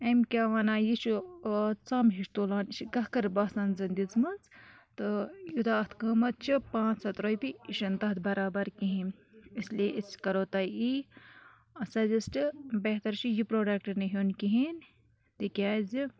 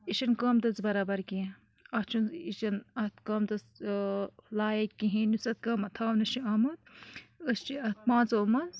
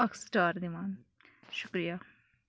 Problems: background sounds at intervals